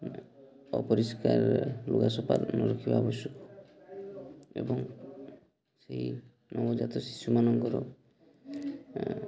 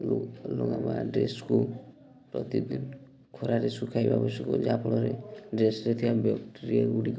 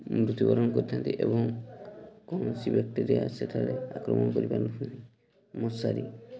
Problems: constant background noise, continuous background conversations